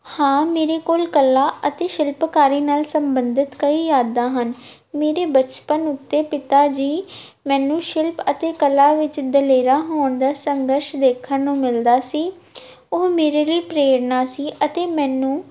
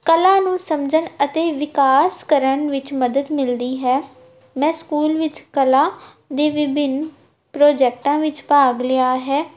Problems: none marked